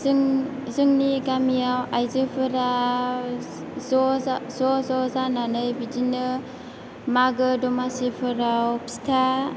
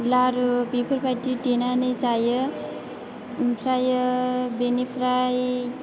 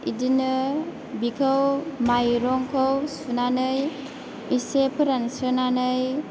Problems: constant background noise, background conversations at intervals